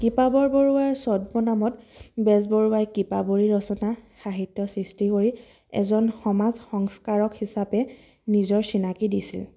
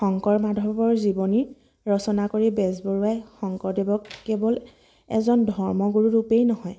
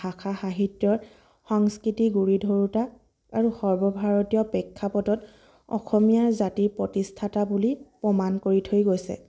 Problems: constant background noise, background conversations at intervals